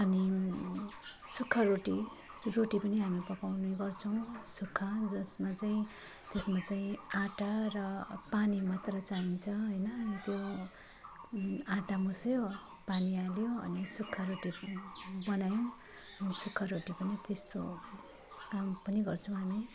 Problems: none marked